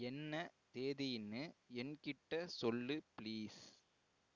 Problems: low volume